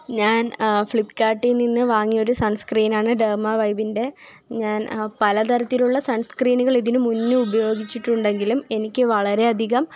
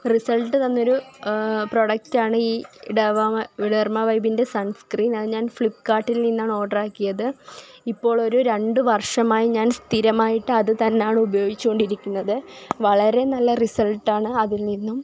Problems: none marked